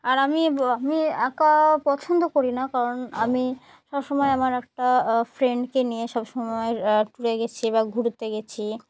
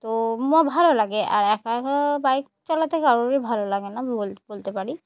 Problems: none marked